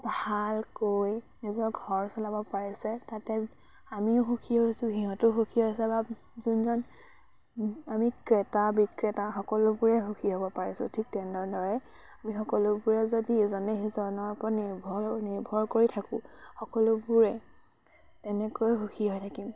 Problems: constant background noise